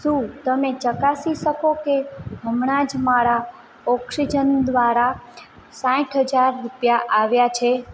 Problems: constant background noise